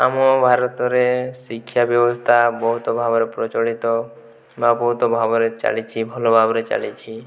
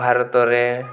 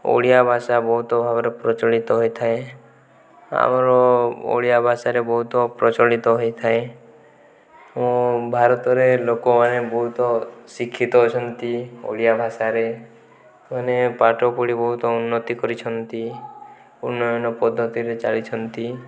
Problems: background conversations at intervals